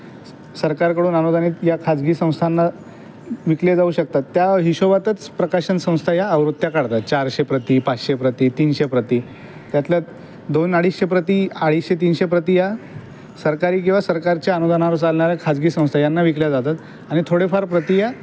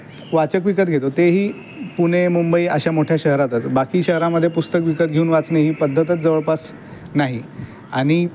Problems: none marked